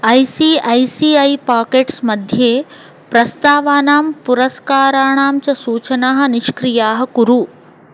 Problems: constant background noise